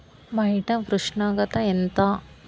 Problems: constant background noise